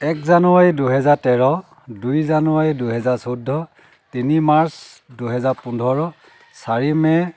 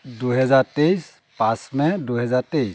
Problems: none marked